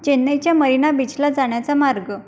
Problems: background sounds at intervals